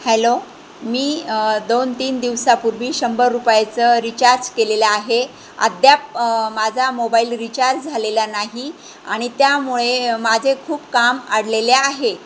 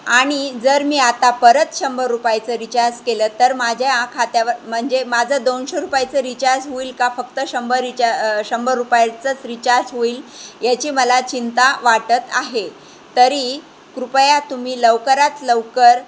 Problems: constant background noise